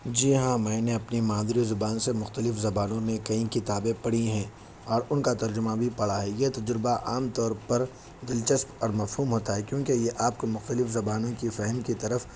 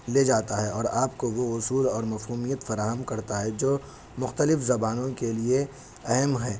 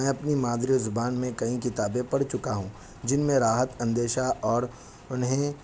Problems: constant background noise